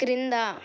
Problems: none marked